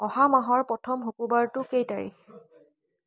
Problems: none marked